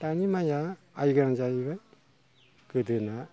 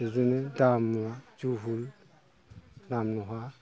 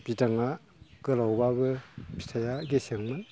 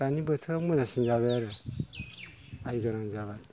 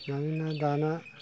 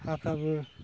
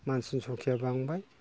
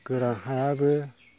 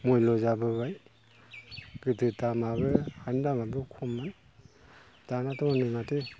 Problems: none marked